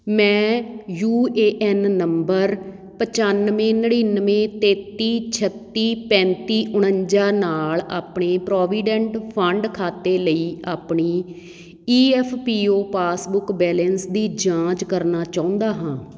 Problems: none marked